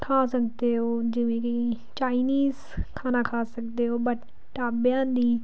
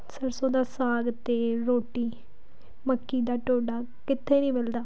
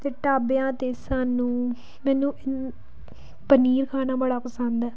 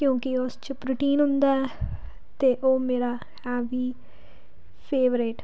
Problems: none marked